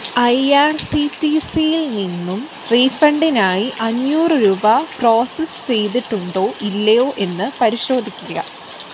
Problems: constant background noise